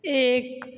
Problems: echo